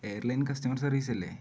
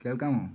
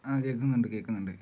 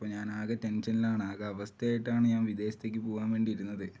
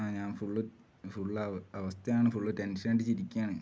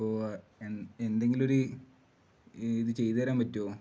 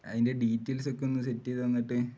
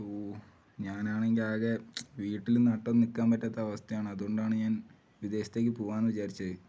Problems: low volume